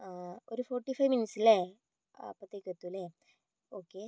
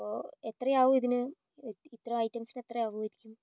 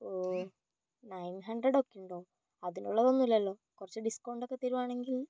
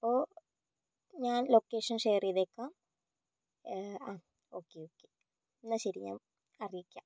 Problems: low volume